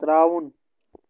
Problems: constant background noise